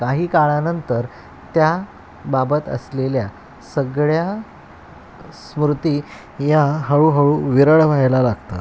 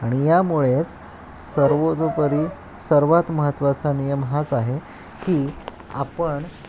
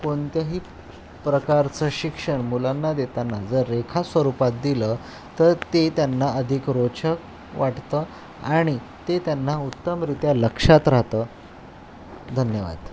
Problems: constant background noise, background conversations at intervals